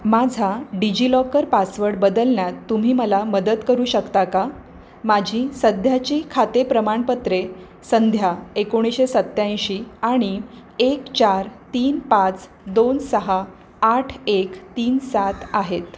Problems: constant background noise